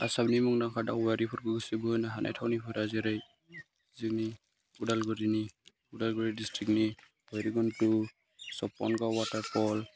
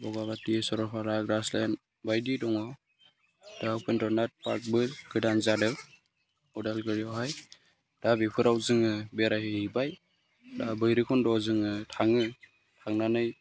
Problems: none marked